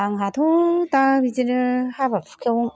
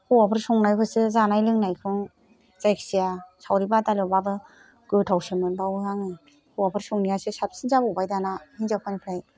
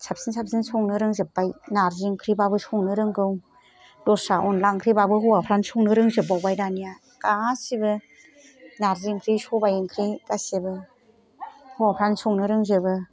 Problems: background sounds at intervals